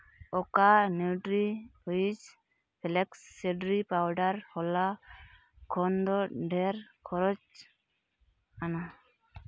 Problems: constant background noise